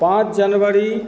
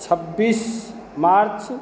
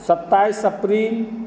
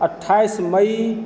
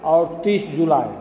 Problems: constant background noise, background conversations at intervals